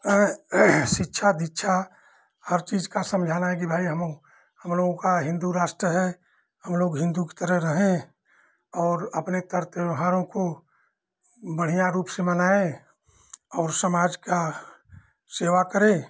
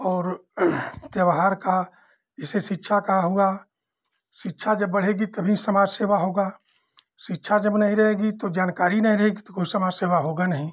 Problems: background sounds at intervals